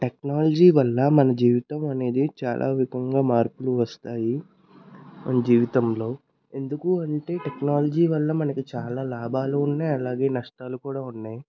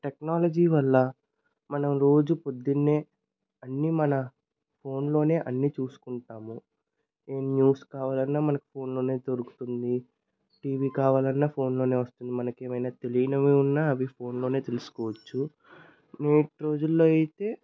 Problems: none marked